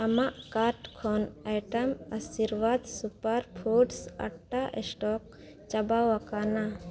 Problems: none marked